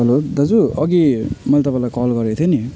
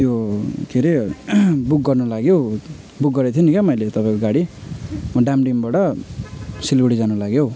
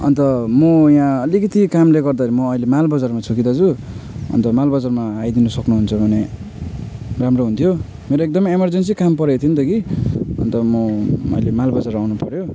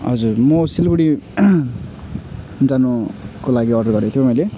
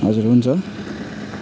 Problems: constant background noise